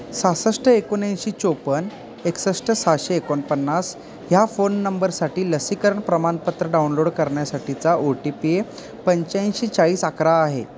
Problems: constant background noise, background conversations at intervals